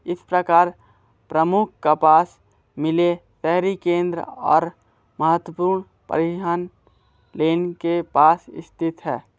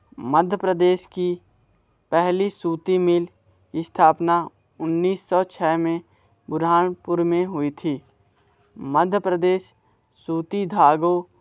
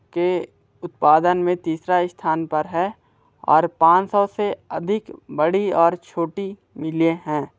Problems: constant background noise